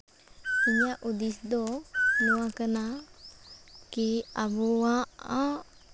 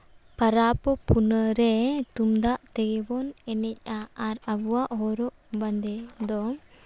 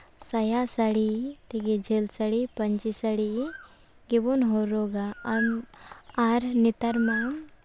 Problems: background sounds at intervals